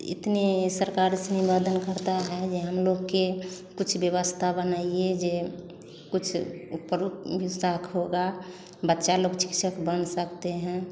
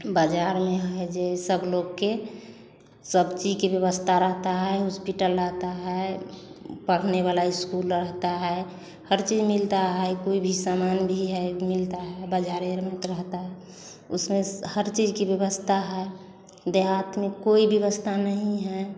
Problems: constant background noise